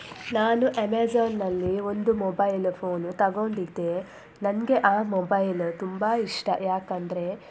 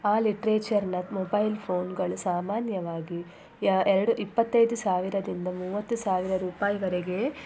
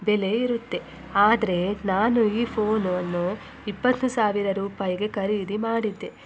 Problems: constant background noise